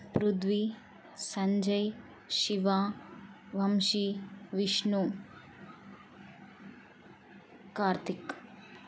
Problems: none marked